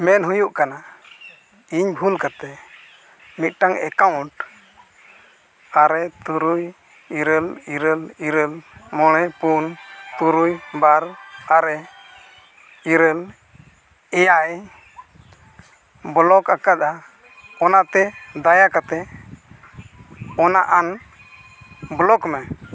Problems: constant background noise